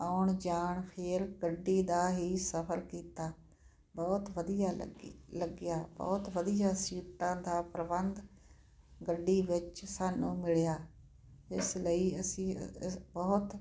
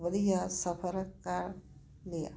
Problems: none marked